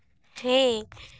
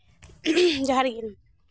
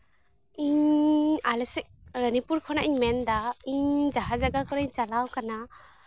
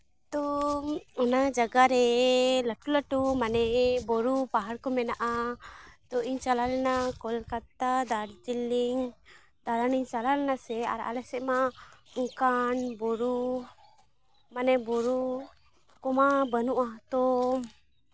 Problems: constant background noise, background conversations at intervals